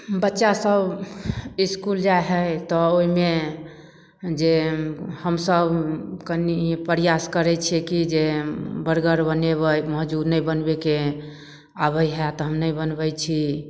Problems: none marked